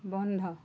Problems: none marked